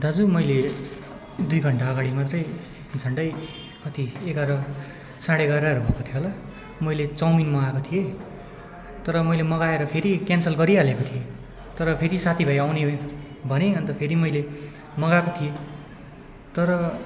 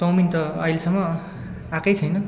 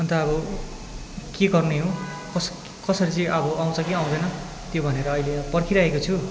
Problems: constant background noise, continuous background conversations